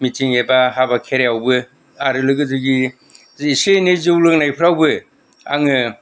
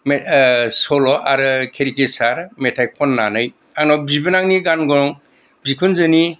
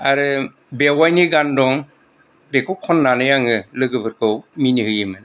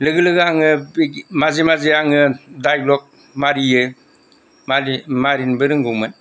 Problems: none marked